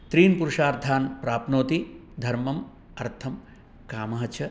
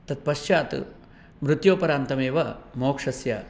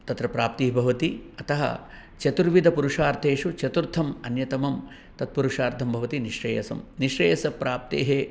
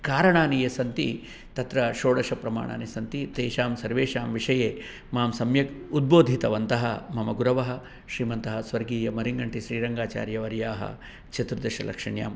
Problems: none marked